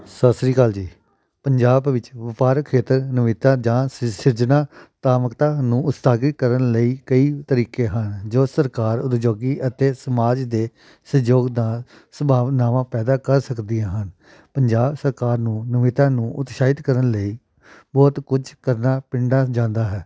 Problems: background sounds at intervals